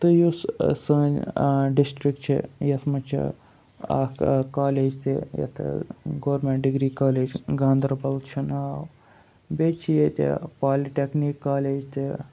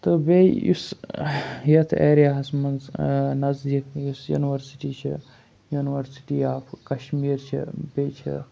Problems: none marked